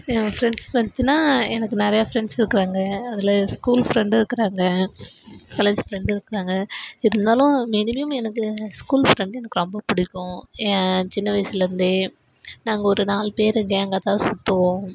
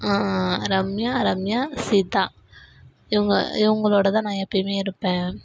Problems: none marked